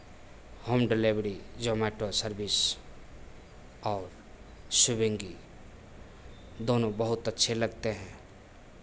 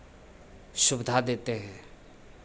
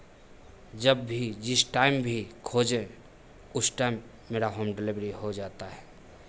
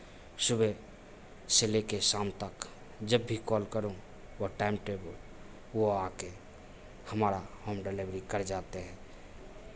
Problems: none marked